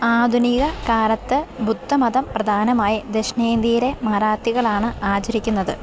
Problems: none marked